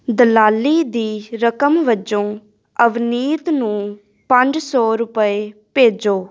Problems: none marked